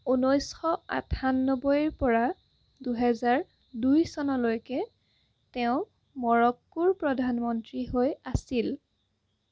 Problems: constant background noise